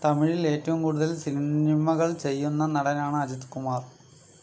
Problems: low volume